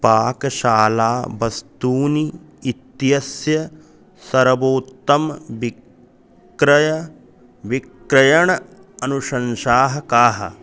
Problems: background conversations at intervals